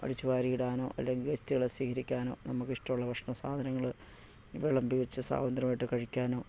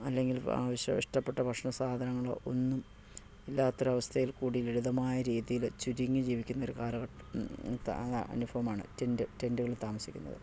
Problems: low volume